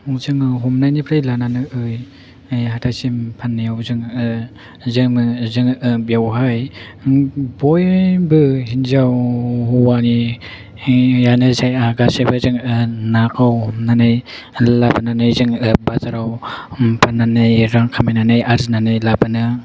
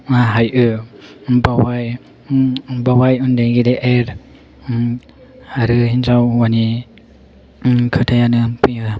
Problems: none marked